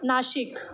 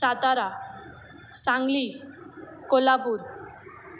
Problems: none marked